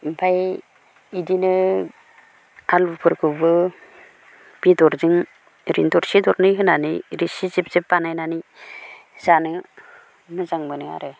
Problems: none marked